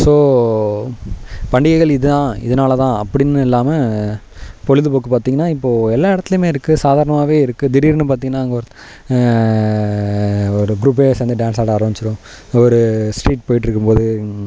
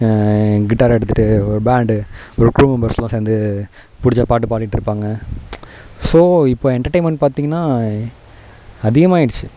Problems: none marked